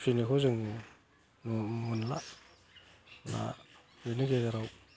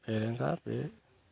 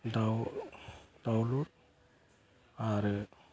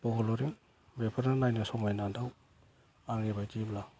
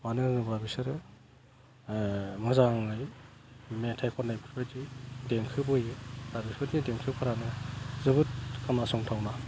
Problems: none marked